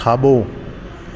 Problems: constant background noise, echo